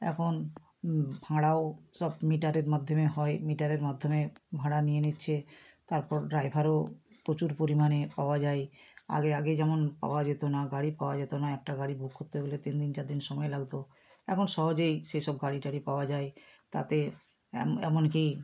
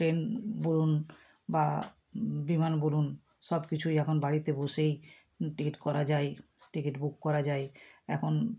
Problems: none marked